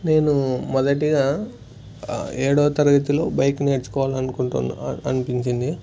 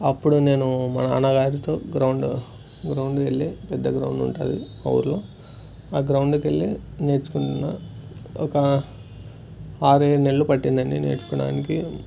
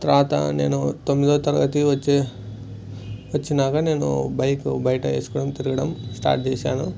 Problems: none marked